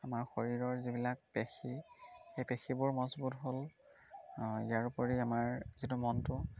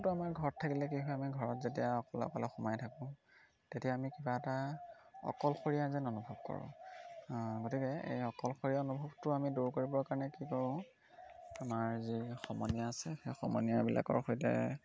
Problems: constant background noise